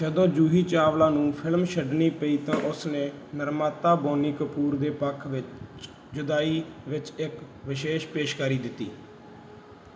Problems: background sounds at intervals